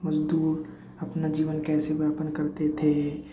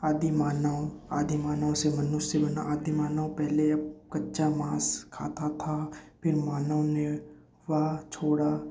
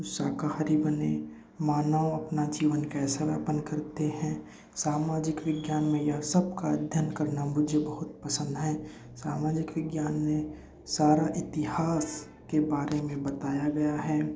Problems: background sounds at intervals, low volume